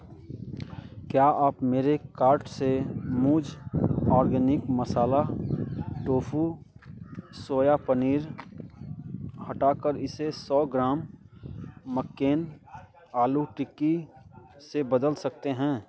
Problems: constant background noise, continuous background conversations